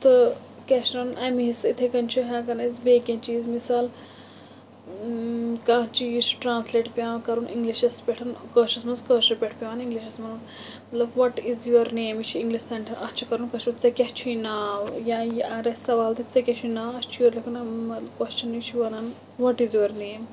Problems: constant background noise